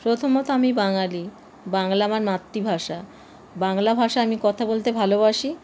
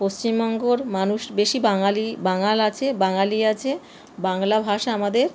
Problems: constant background noise